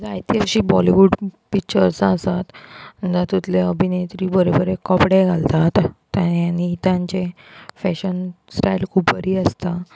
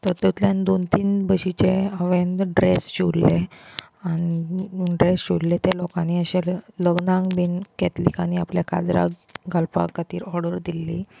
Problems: constant background noise, background conversations at intervals